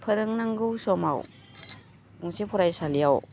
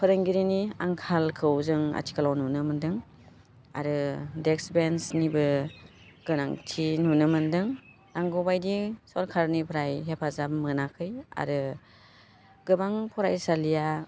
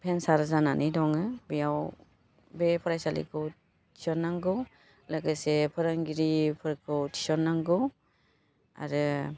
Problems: constant background noise